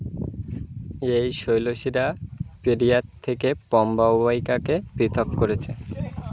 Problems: constant background noise